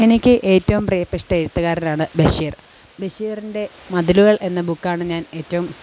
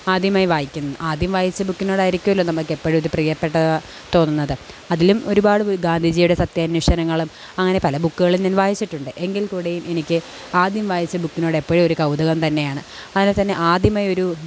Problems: constant background noise